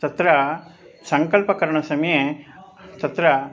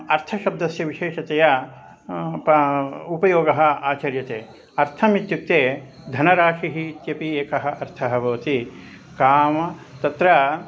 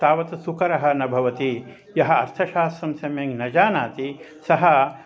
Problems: constant background noise, background conversations at intervals